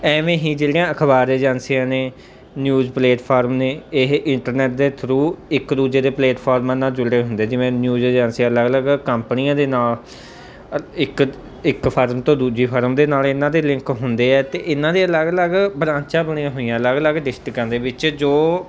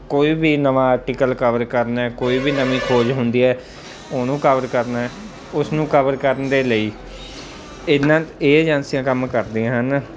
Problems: background sounds at intervals